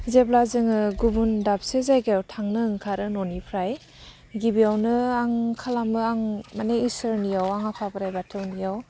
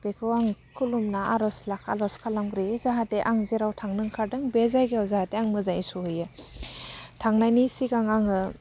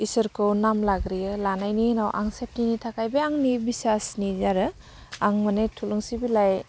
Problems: low volume